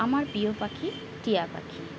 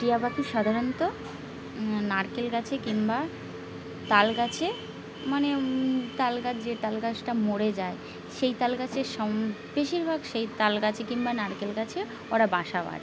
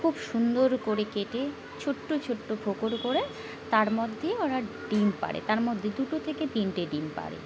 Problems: constant background noise, background conversations at intervals